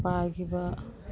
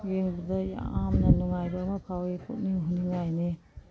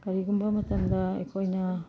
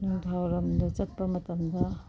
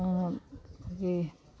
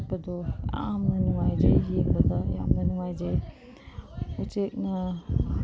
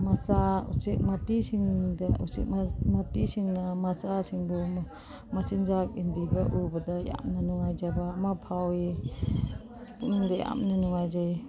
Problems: background sounds at intervals, background conversations at intervals